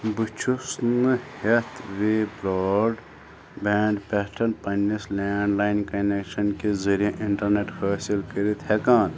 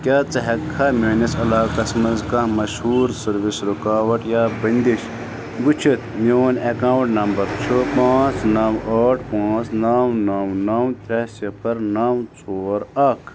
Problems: constant background noise